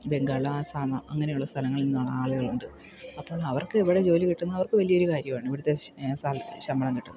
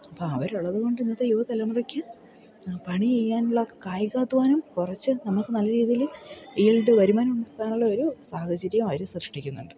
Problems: background sounds at intervals